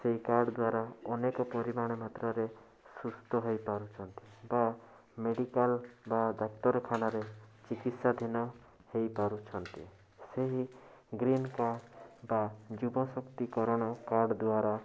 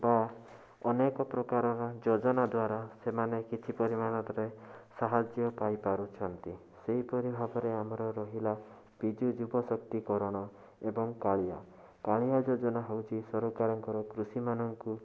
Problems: constant background noise